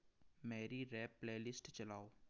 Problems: none marked